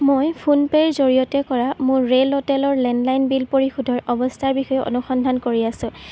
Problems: constant background noise